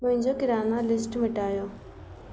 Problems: constant background noise